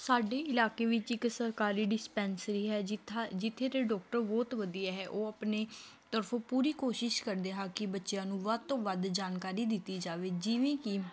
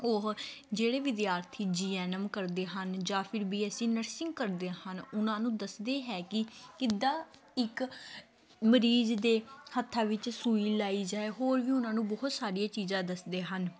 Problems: continuous background conversations